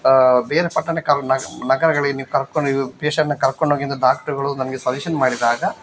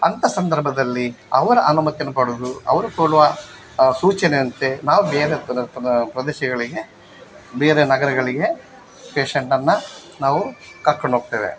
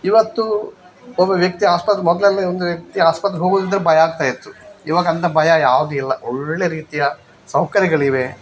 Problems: none marked